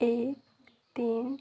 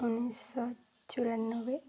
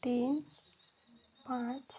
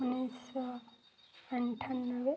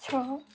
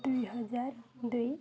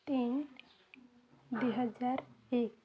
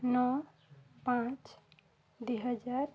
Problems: background sounds at intervals